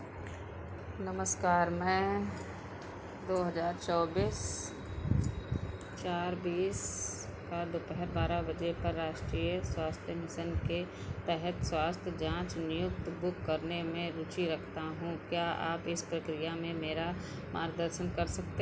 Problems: background sounds at intervals